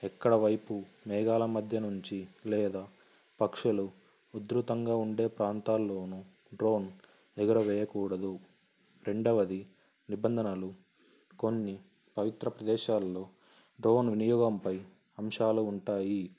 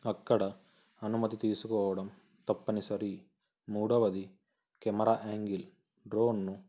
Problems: constant background noise